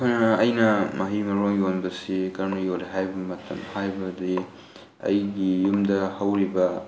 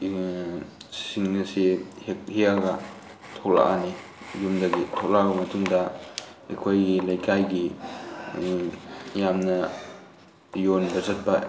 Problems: constant background noise